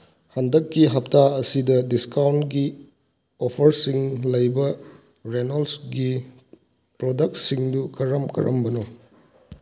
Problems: none marked